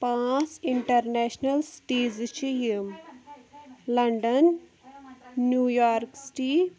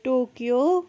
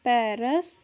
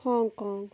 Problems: background sounds at intervals, background conversations at intervals